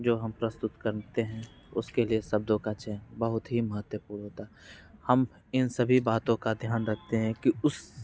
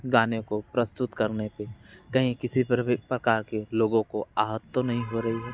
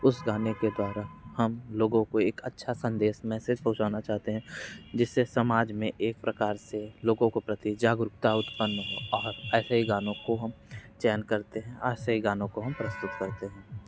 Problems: background sounds at intervals